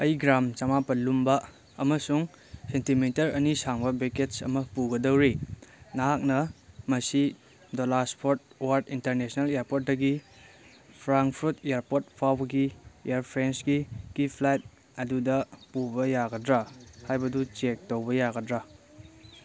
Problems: background sounds at intervals